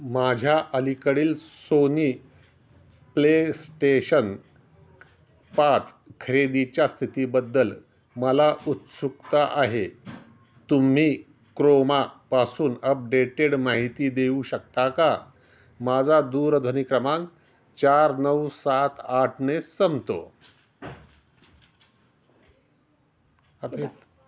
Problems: none marked